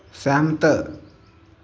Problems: constant background noise